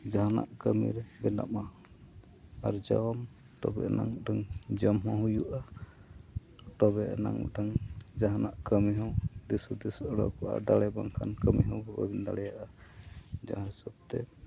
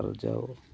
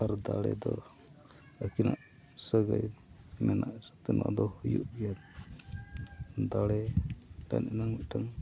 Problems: background sounds at intervals, background conversations at intervals